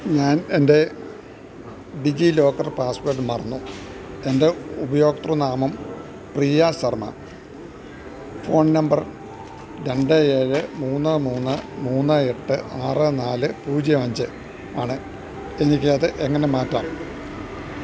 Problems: constant background noise, low volume